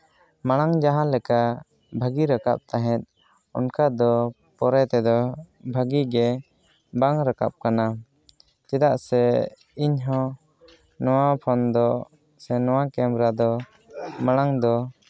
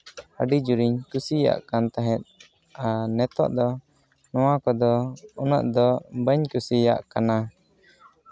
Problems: background conversations at intervals